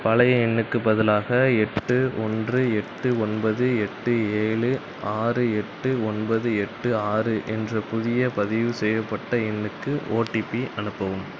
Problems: background sounds at intervals